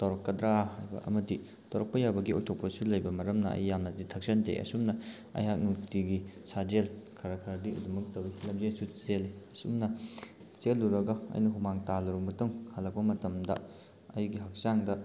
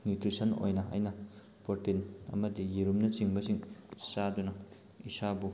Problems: none marked